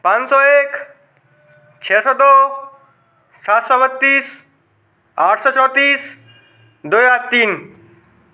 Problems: constant background noise, background conversations at intervals